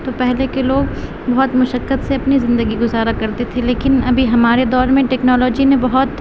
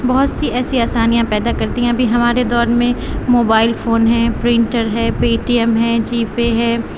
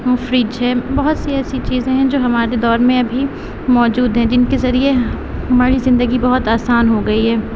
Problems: constant background noise